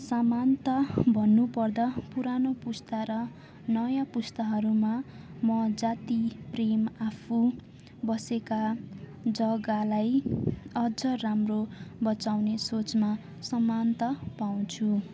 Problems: constant background noise, continuous background conversations